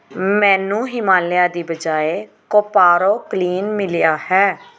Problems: background sounds at intervals